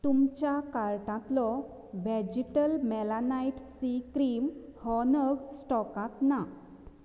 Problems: low volume